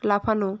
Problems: constant background noise